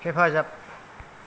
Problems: low volume